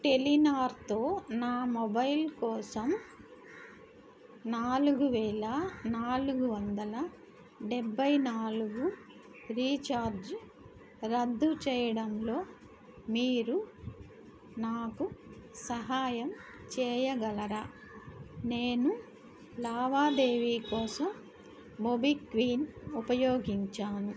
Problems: background sounds at intervals